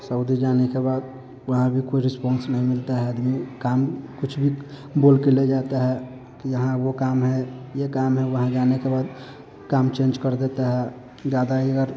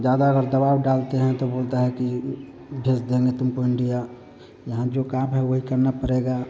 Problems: none marked